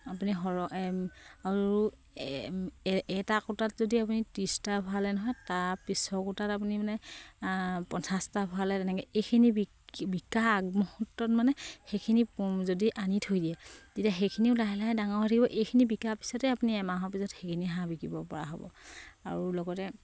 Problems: none marked